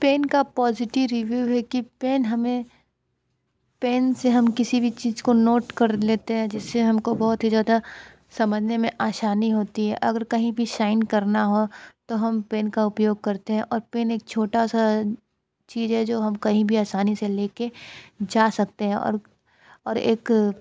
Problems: constant background noise